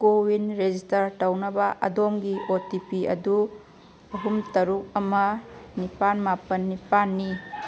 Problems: none marked